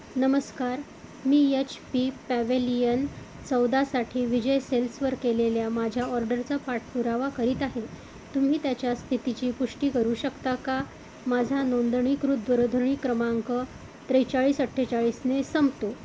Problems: constant background noise